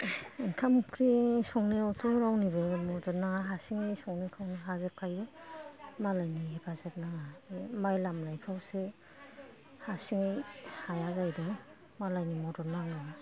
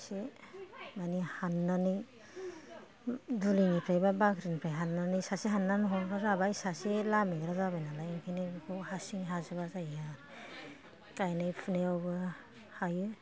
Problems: background conversations at intervals